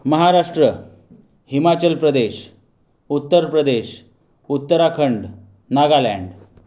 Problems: background sounds at intervals